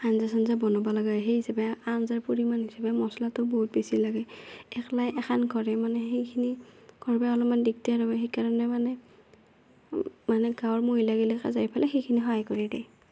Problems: none marked